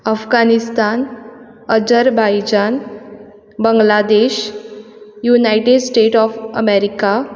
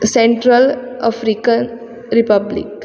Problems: background sounds at intervals